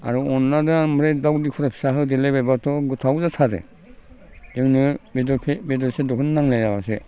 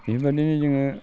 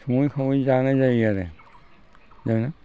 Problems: constant background noise